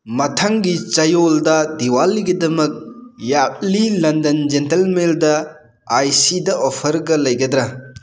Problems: background sounds at intervals